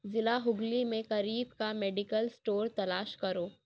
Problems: none marked